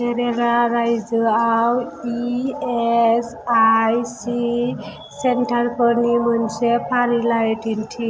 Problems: constant background noise